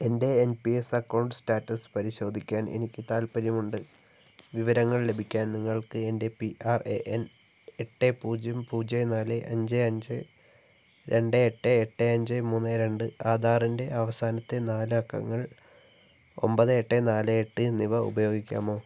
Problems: low volume